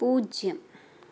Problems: background sounds at intervals